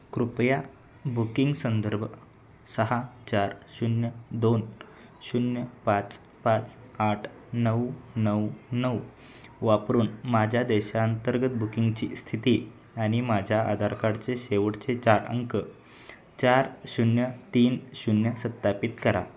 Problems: none marked